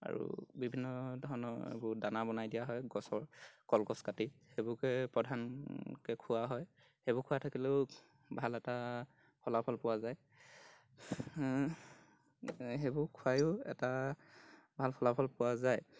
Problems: background sounds at intervals